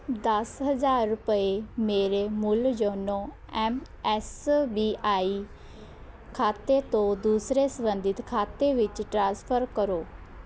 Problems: constant background noise